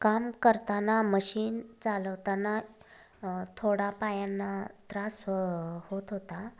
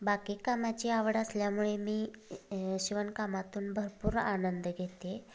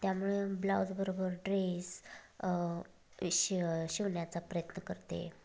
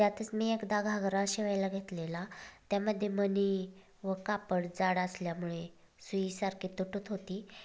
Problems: constant background noise, background conversations at intervals